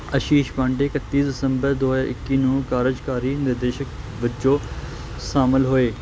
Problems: none marked